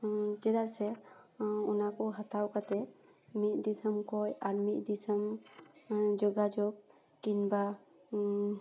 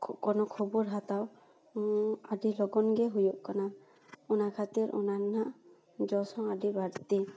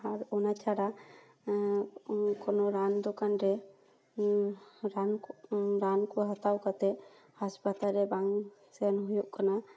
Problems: none marked